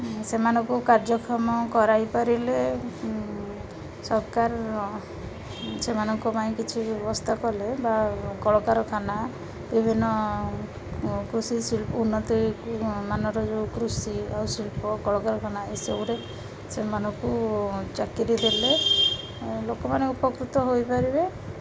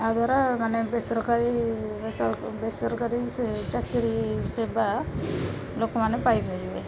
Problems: constant background noise, continuous background conversations